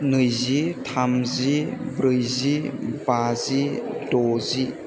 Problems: constant background noise